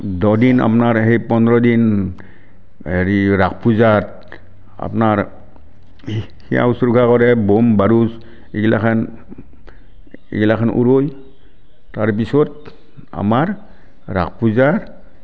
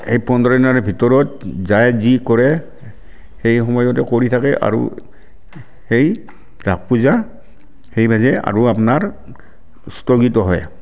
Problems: none marked